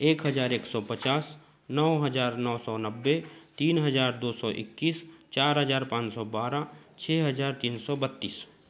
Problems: none marked